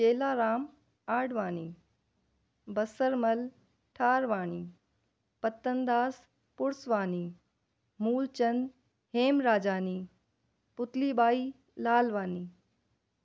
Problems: none marked